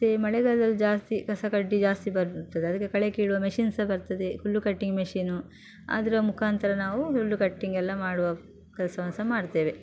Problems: none marked